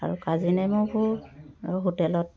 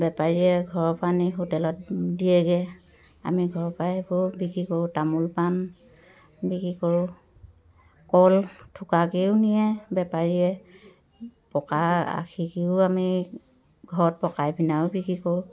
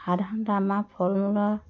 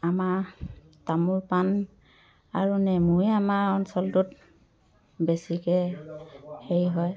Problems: background conversations at intervals